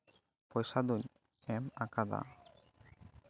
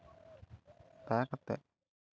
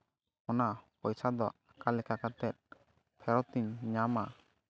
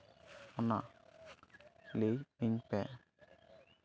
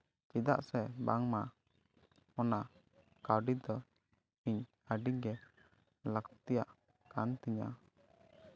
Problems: none marked